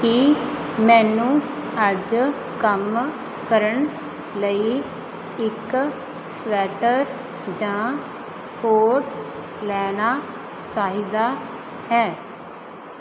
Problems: constant background noise